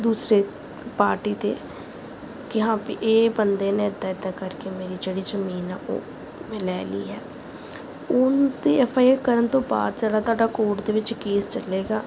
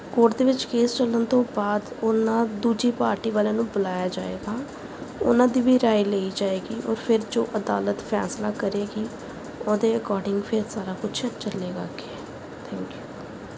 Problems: background sounds at intervals